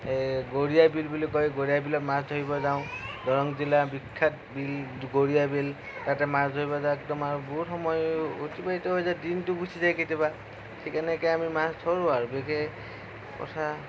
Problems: low volume